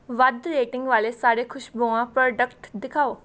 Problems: background sounds at intervals